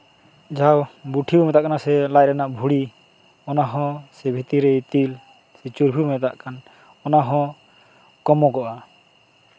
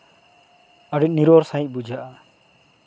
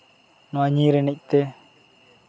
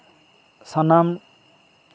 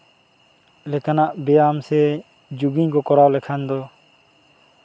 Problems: constant background noise, background conversations at intervals